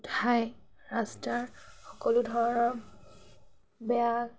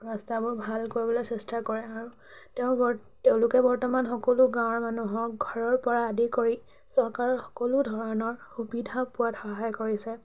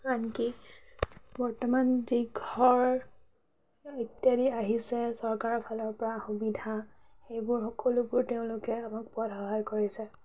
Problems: constant background noise, background conversations at intervals